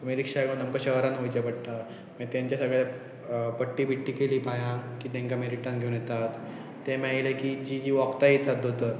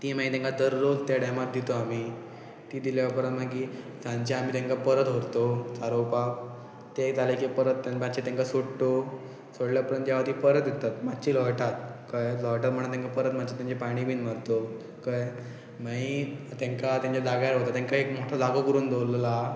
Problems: constant background noise